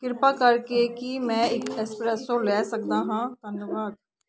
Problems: constant background noise